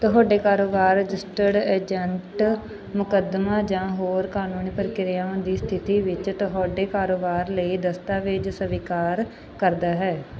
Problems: background sounds at intervals